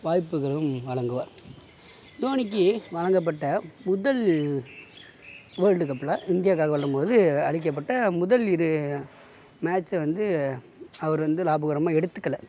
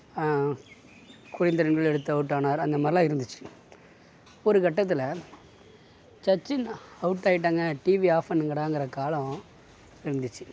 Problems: background sounds at intervals, low volume